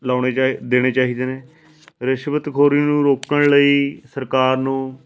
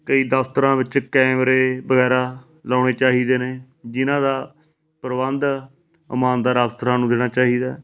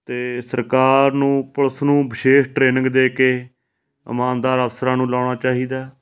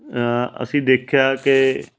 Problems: constant background noise